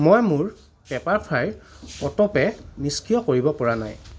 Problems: none marked